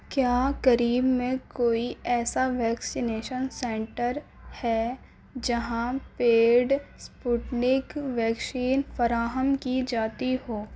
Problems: constant background noise